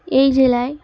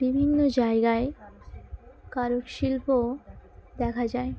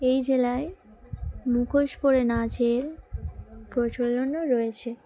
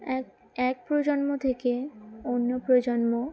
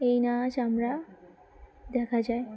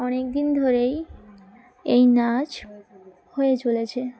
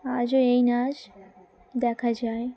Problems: none marked